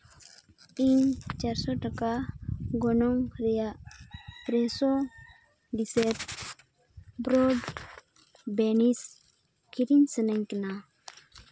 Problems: background sounds at intervals